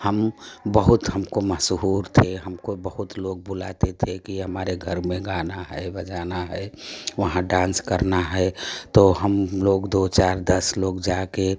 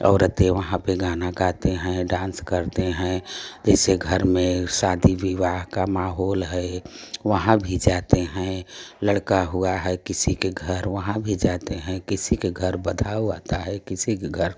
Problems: none marked